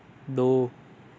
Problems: none marked